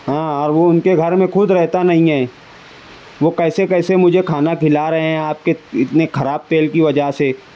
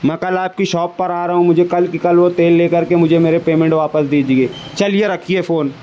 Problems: constant background noise, background conversations at intervals